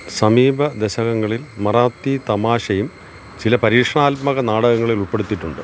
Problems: constant background noise